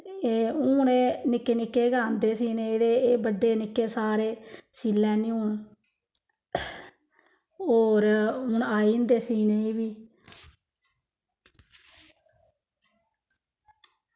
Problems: none marked